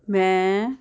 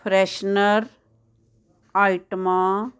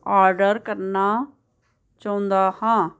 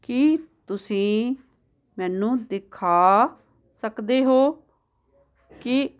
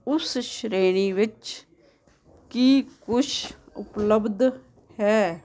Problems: constant background noise